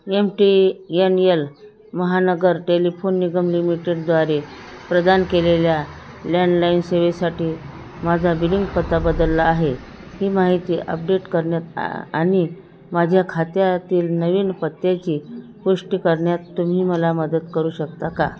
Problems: constant background noise